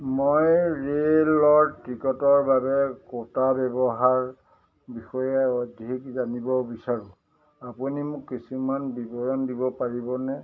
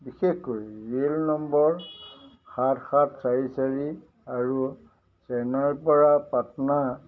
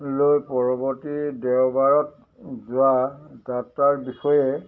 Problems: background conversations at intervals